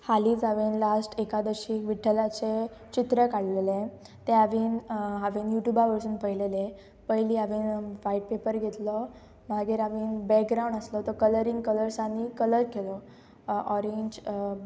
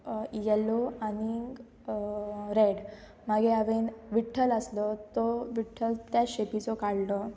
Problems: constant background noise